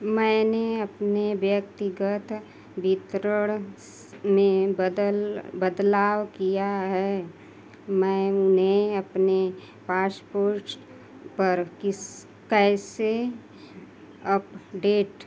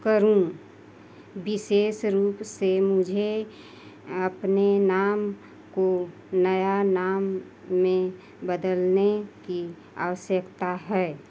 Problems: none marked